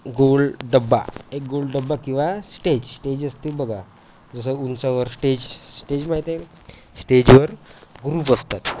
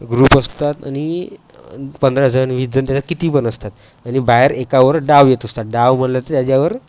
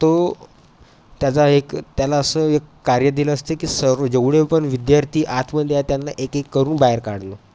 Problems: none marked